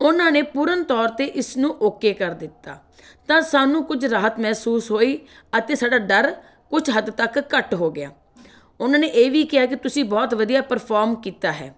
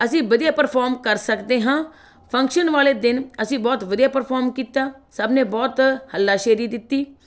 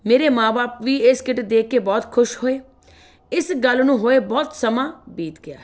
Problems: background sounds at intervals